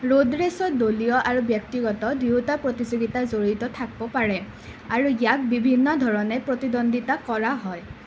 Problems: none marked